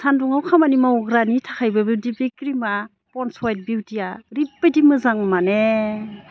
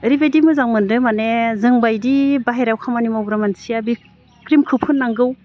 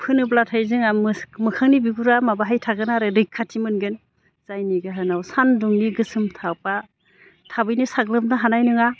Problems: none marked